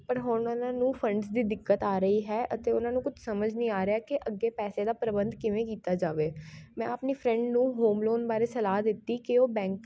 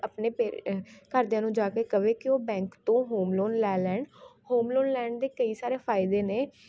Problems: constant background noise